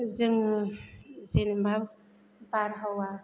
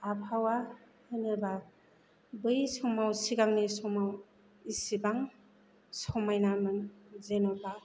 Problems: none marked